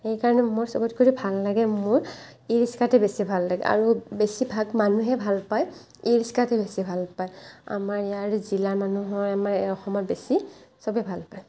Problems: none marked